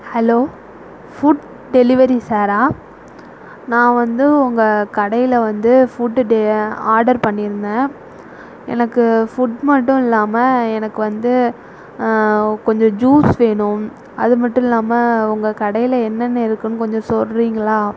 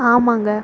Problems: none marked